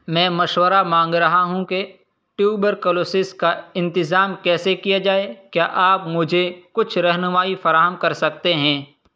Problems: none marked